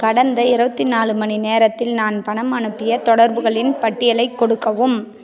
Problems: none marked